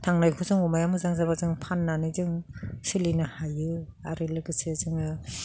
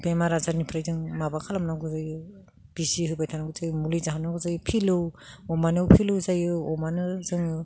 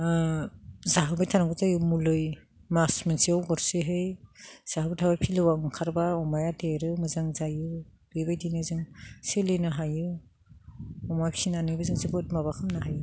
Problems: none marked